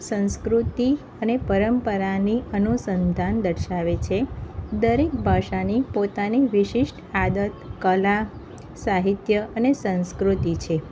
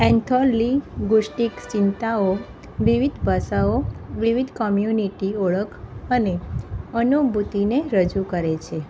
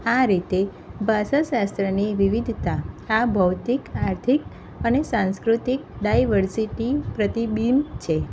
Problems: none marked